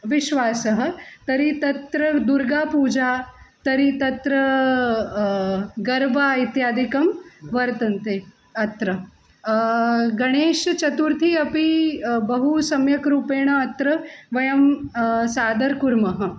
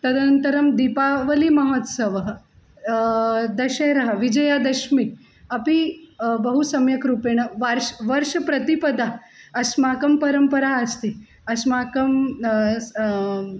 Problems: constant background noise